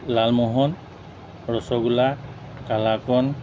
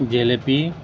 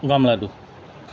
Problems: background sounds at intervals